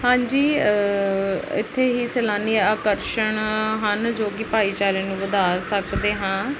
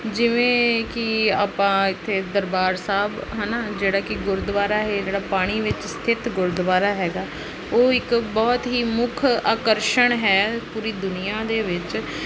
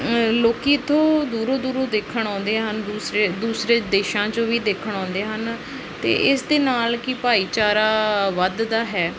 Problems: constant background noise